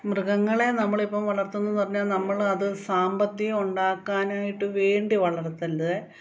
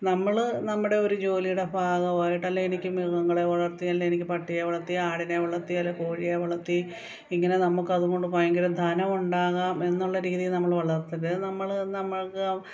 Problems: none marked